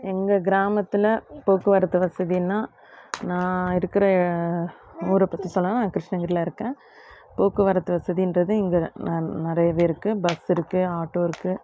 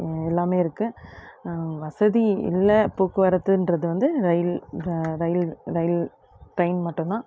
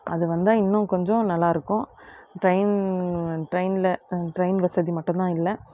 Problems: constant background noise, background conversations at intervals